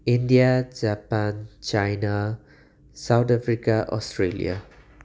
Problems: background sounds at intervals